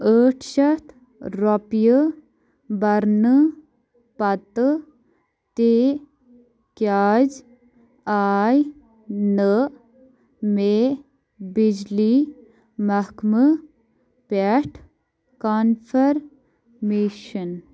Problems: background sounds at intervals